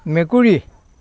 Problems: background conversations at intervals